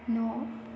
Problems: none marked